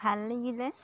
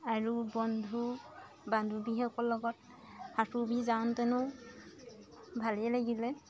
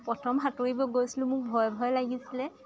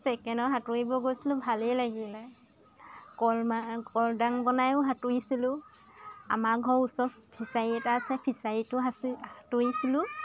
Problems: constant background noise, continuous background conversations